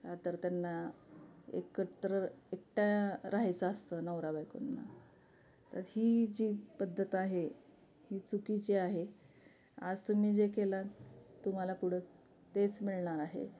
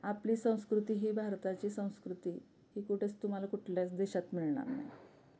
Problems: background sounds at intervals